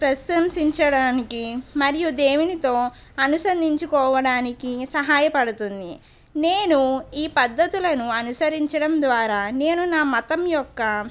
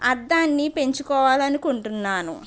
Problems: none marked